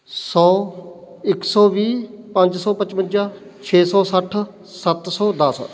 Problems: background sounds at intervals